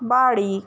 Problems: constant background noise